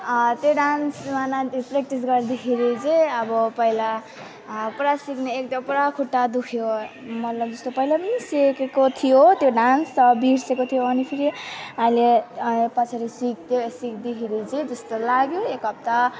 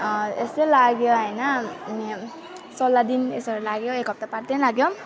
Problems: constant background noise, continuous background conversations